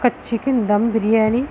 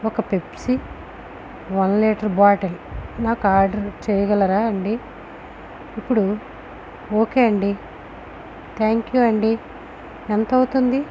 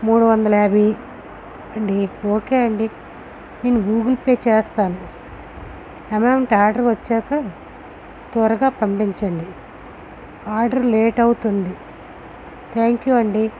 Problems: constant background noise